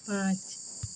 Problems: constant background noise